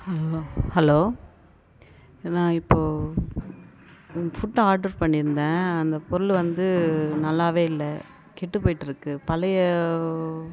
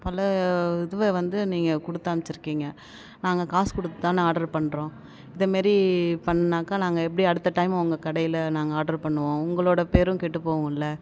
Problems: background sounds at intervals